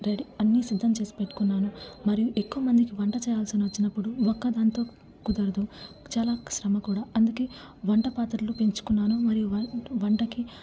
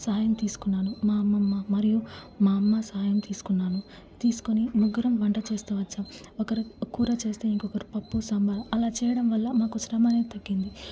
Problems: low volume